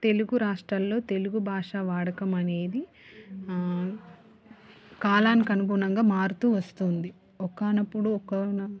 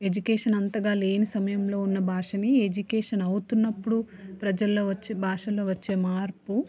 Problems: none marked